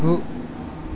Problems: constant background noise